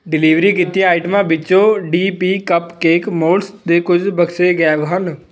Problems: background conversations at intervals